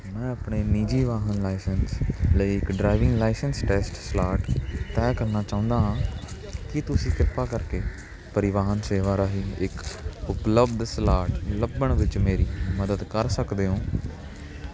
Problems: constant background noise